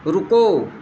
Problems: constant background noise